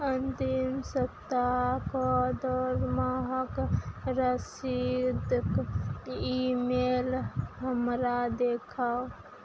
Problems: none marked